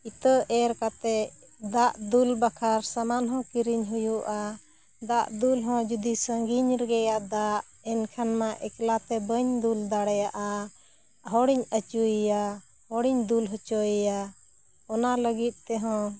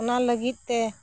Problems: none marked